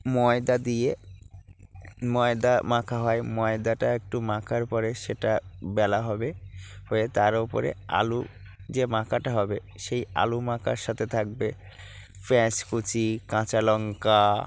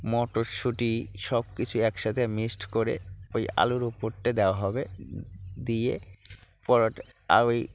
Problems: background sounds at intervals, low volume